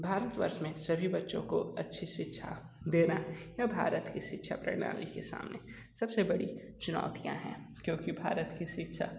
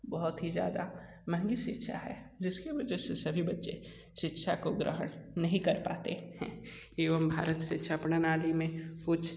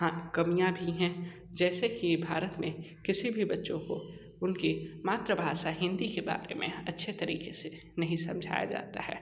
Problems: constant background noise, echo, low volume